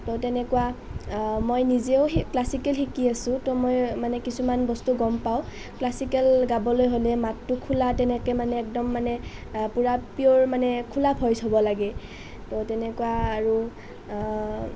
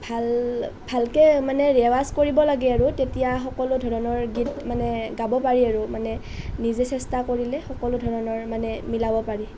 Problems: none marked